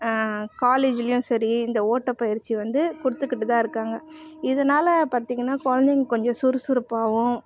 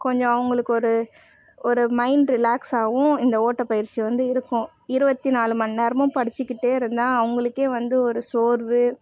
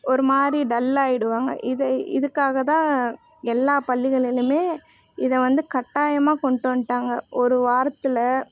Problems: constant background noise